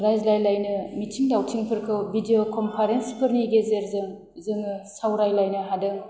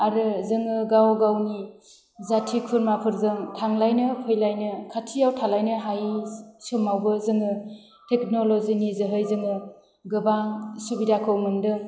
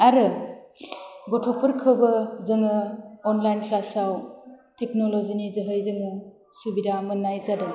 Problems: low volume